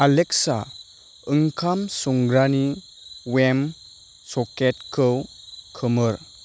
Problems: none marked